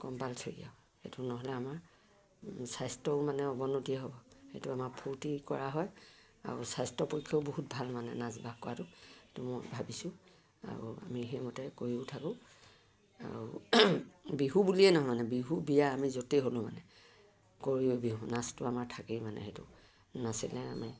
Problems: low volume